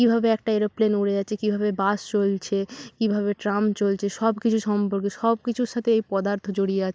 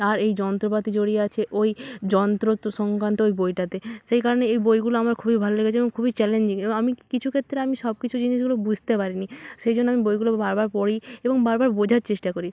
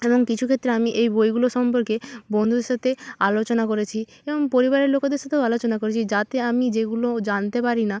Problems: none marked